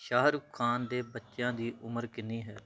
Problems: background sounds at intervals